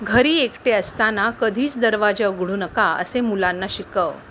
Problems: none marked